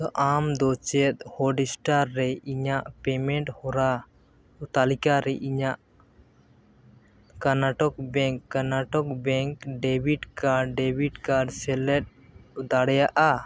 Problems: none marked